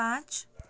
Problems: none marked